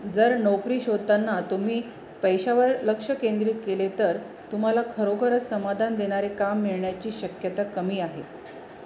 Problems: none marked